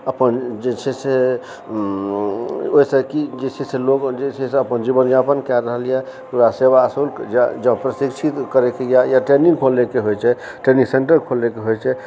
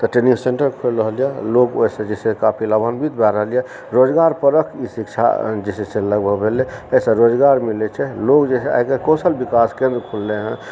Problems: background conversations at intervals